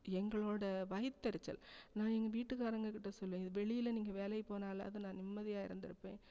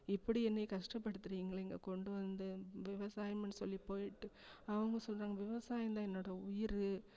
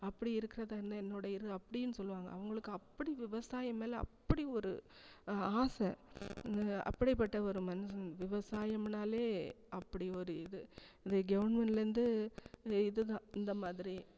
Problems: none marked